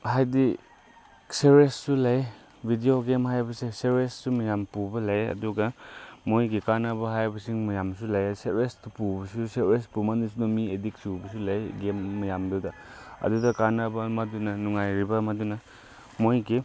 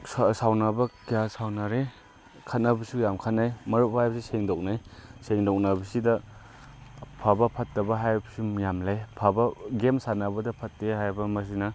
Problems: background sounds at intervals